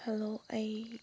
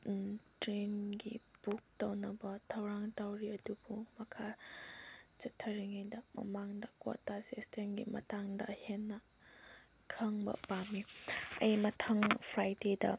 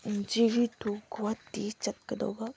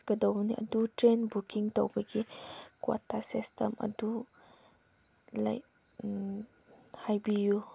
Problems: constant background noise